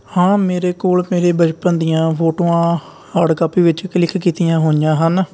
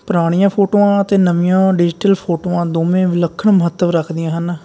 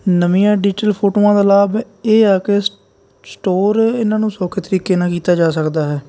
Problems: none marked